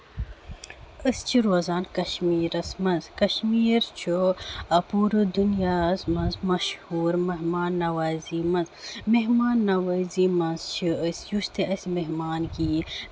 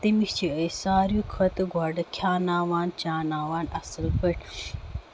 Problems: none marked